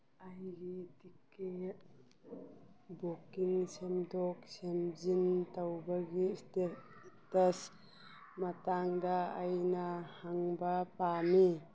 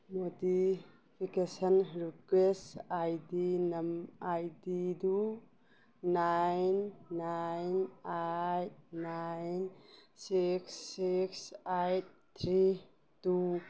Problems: background sounds at intervals